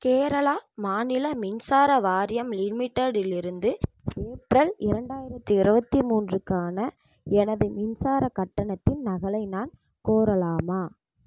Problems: background sounds at intervals, low volume